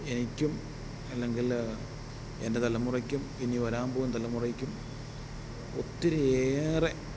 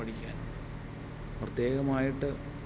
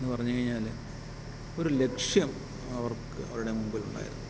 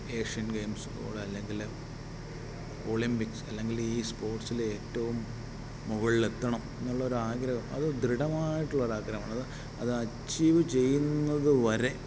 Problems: background sounds at intervals